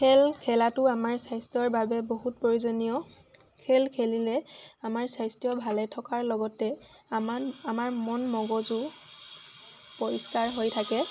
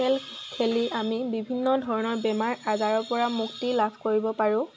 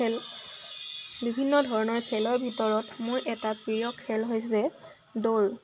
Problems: constant background noise